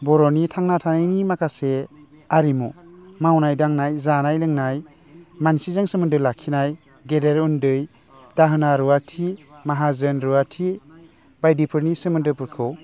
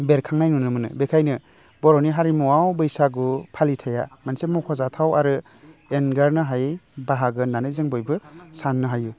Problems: constant background noise